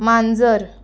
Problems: background sounds at intervals